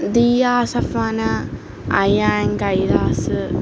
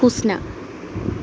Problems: constant background noise